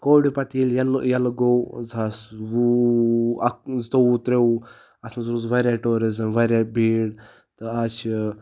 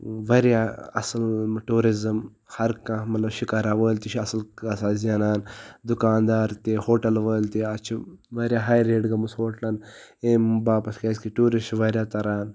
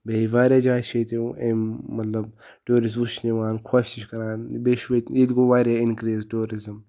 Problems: background sounds at intervals